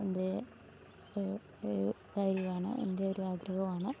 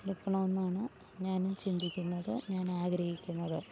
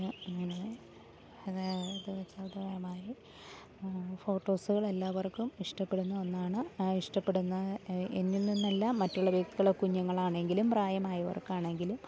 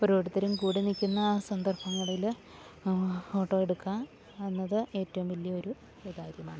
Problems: low volume